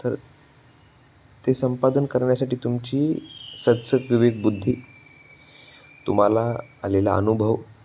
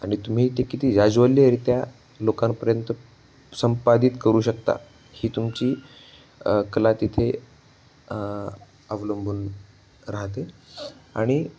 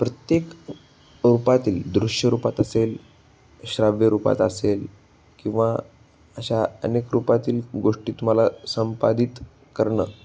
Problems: background sounds at intervals